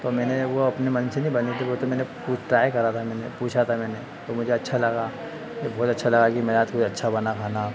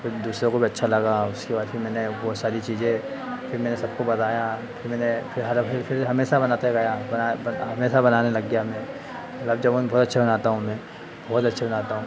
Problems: constant background noise